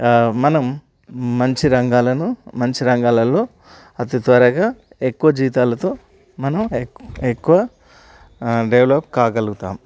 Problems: none marked